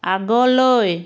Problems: none marked